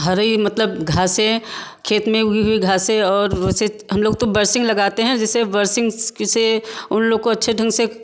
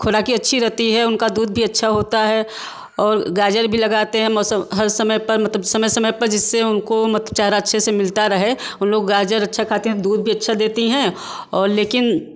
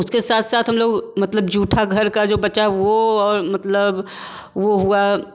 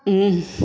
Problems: background sounds at intervals